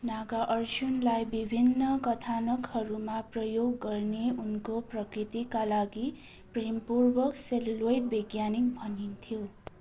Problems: constant background noise